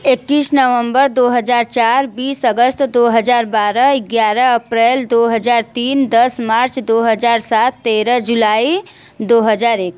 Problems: background sounds at intervals